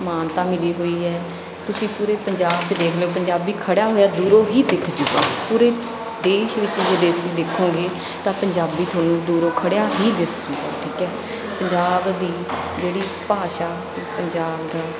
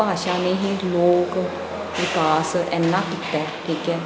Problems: none marked